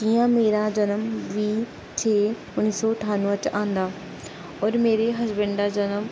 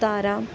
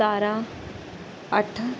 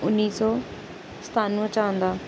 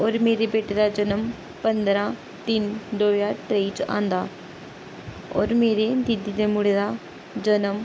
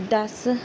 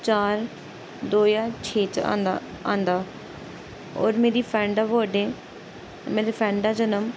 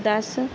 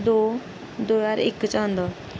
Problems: constant background noise